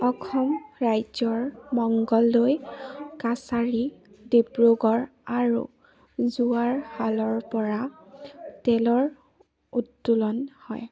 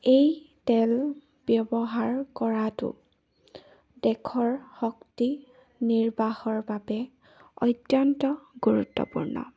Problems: none marked